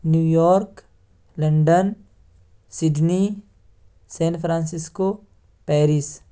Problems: none marked